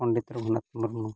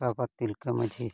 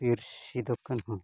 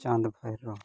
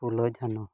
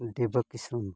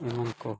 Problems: background sounds at intervals, low volume